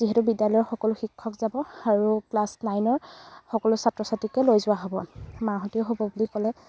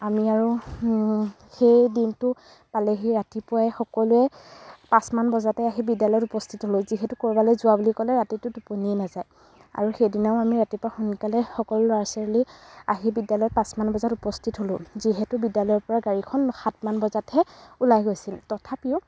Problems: background sounds at intervals